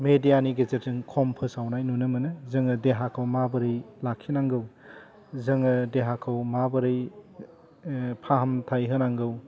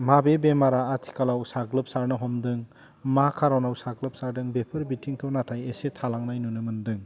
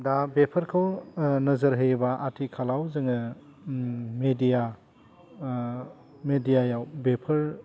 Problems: low volume